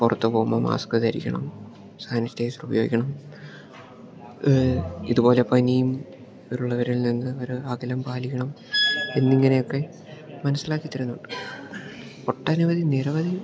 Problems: background sounds at intervals